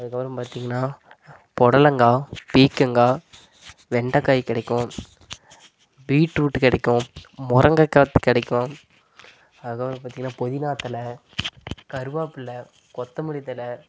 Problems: constant background noise, low volume